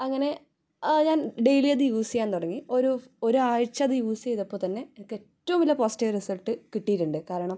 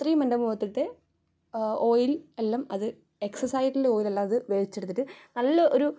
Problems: none marked